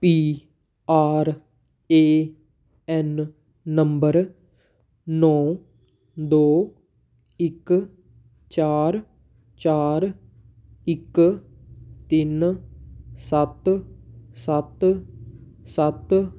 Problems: background sounds at intervals